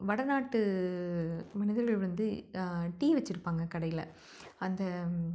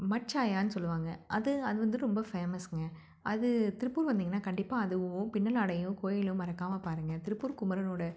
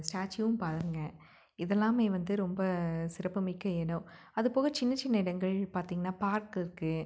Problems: none marked